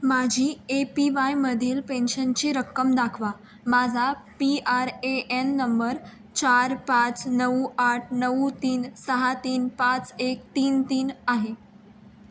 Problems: background sounds at intervals